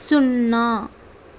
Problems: constant background noise